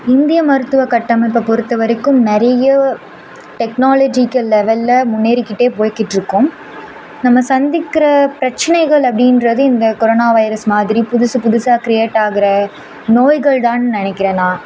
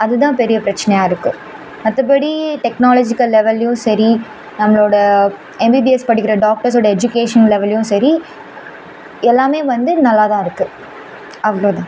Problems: none marked